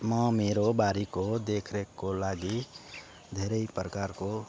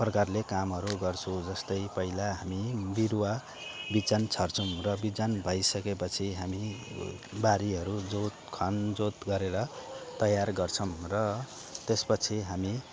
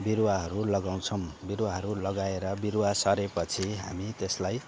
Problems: constant background noise